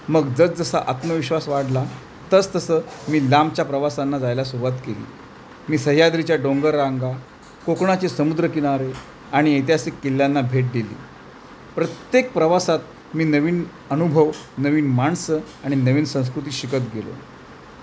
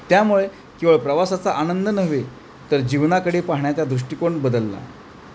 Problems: constant background noise